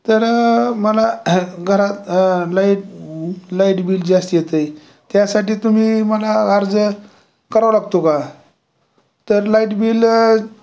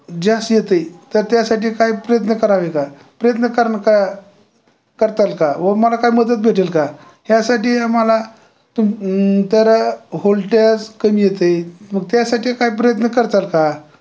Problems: constant background noise, background conversations at intervals